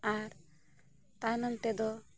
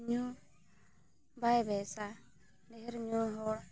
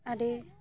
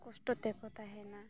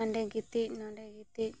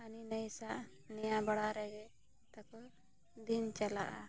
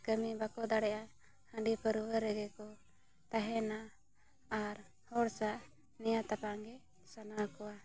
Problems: background conversations at intervals